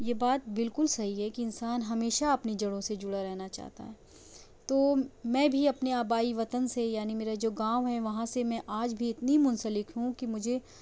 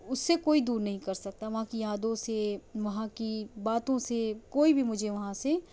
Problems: low volume